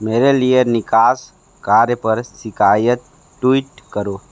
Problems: none marked